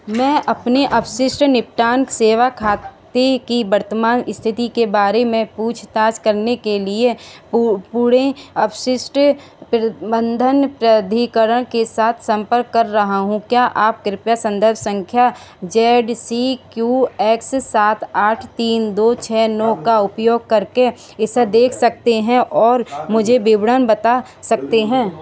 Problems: background conversations at intervals